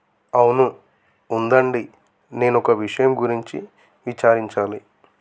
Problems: constant background noise